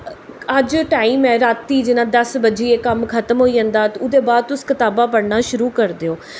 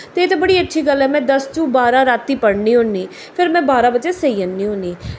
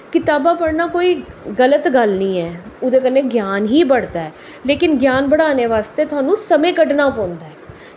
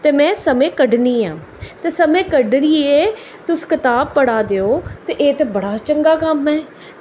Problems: echo